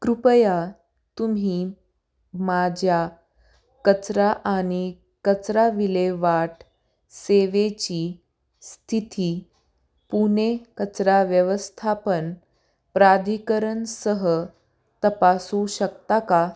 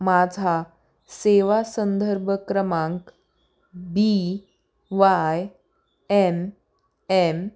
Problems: none marked